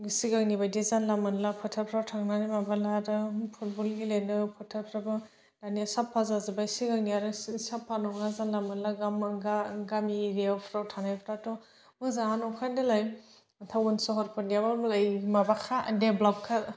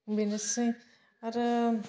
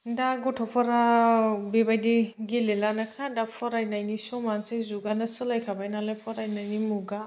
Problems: none marked